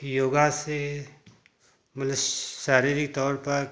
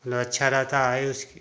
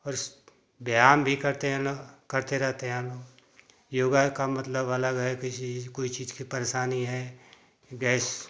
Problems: constant background noise